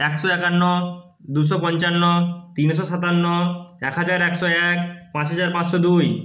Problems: none marked